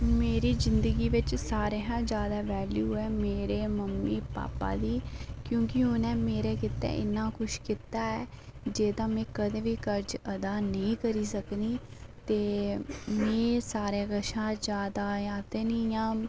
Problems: background sounds at intervals, low volume